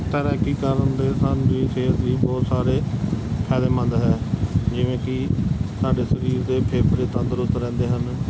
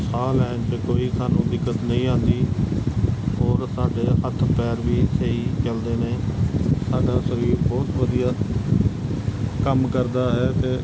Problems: constant background noise